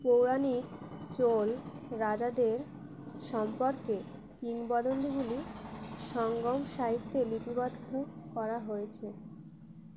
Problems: none marked